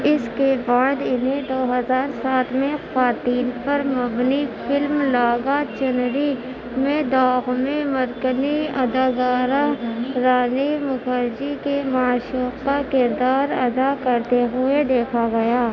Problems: constant background noise, background conversations at intervals